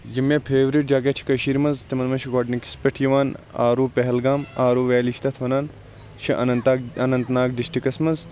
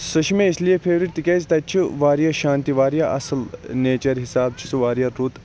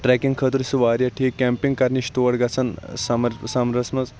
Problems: constant background noise